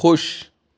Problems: constant background noise